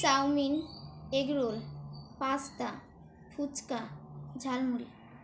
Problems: background sounds at intervals